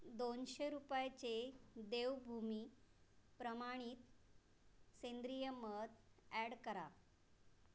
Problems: background sounds at intervals